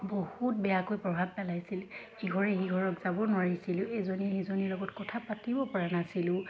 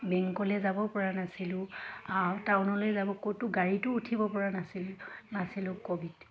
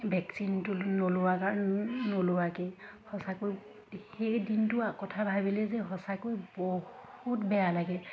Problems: constant background noise, background conversations at intervals